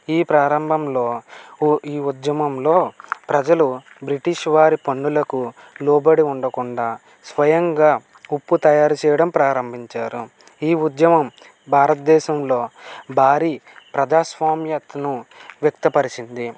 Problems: none marked